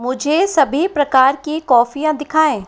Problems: constant background noise